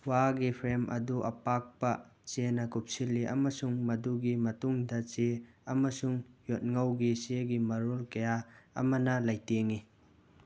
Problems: none marked